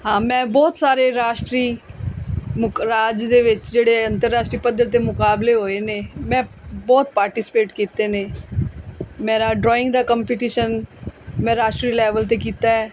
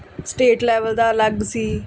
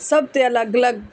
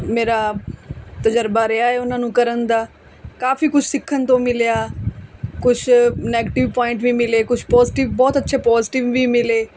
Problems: none marked